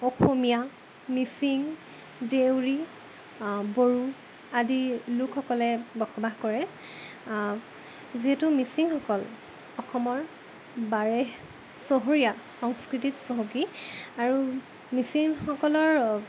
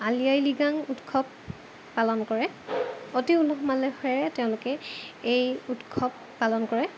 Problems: constant background noise